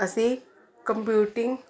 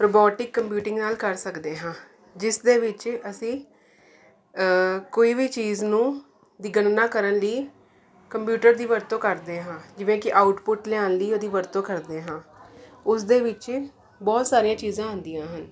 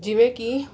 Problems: continuous background conversations